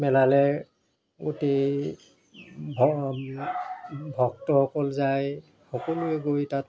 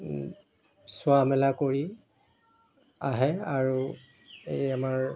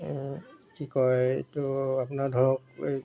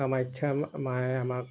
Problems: constant background noise